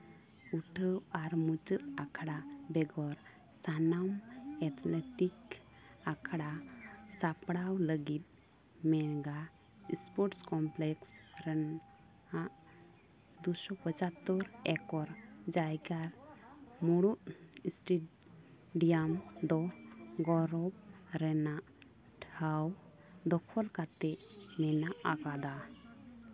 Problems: constant background noise, continuous background conversations